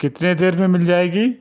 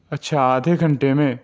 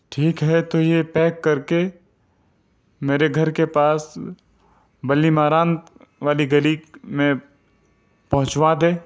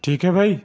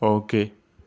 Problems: none marked